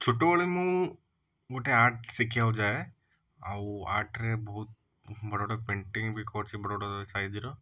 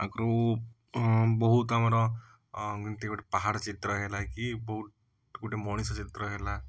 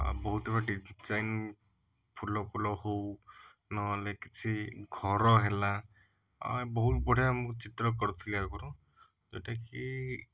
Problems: background sounds at intervals